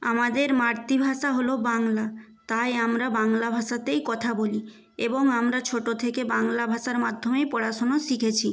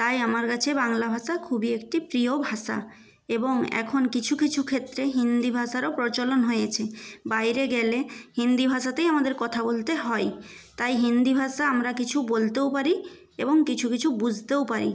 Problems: background sounds at intervals